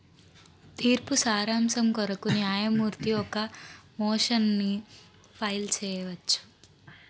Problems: background sounds at intervals